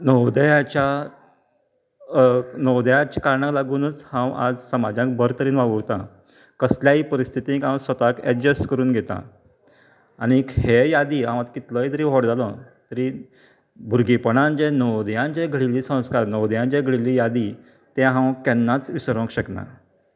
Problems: none marked